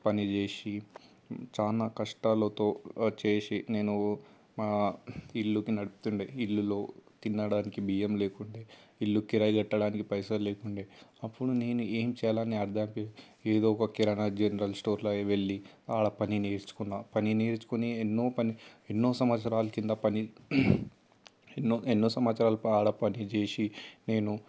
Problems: constant background noise